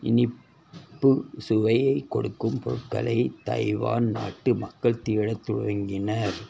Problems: constant background noise